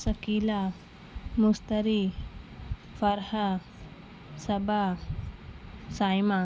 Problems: constant background noise